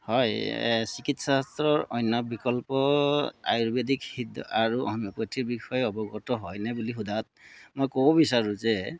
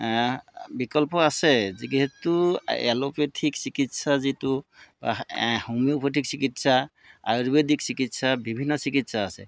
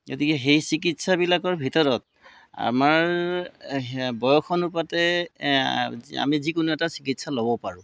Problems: background sounds at intervals